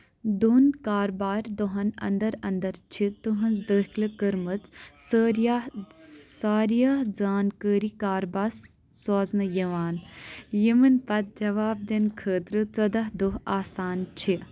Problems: background sounds at intervals